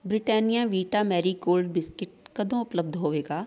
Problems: background sounds at intervals, background conversations at intervals